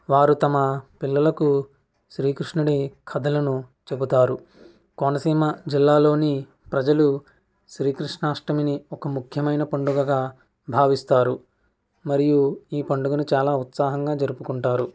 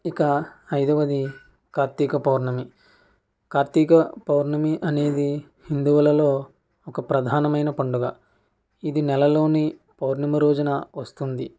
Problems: none marked